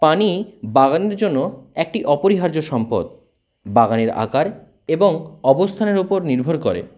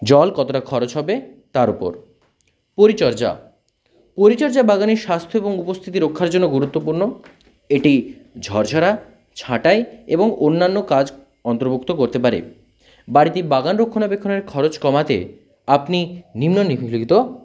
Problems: constant background noise